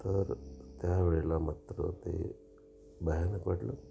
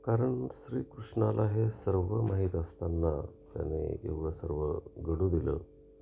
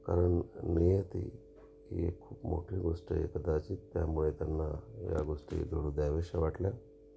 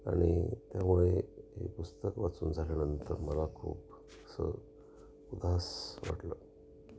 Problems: constant background noise, background conversations at intervals